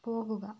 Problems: low volume